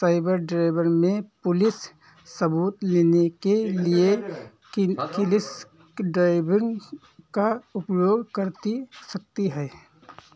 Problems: background sounds at intervals